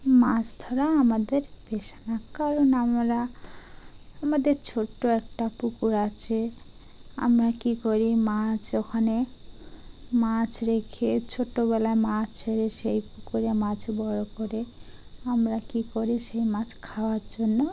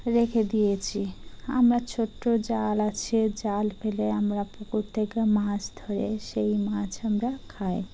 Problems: background sounds at intervals